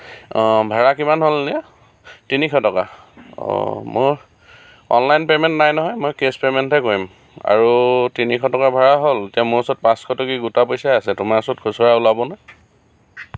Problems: none marked